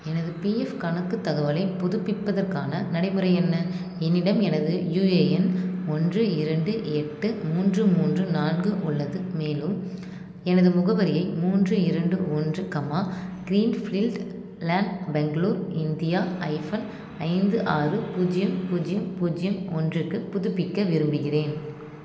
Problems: constant background noise